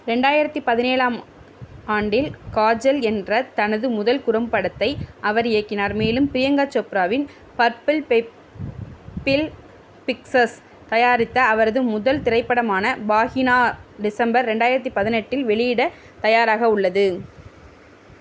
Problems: constant background noise